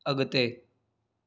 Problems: none marked